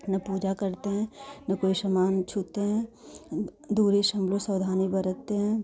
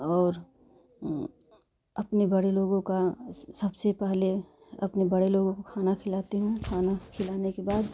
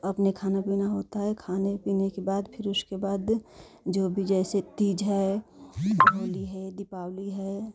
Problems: none marked